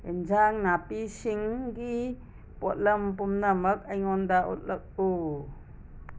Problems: constant background noise